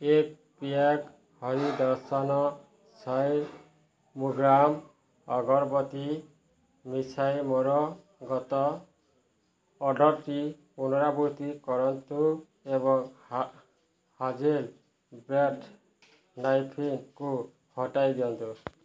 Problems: none marked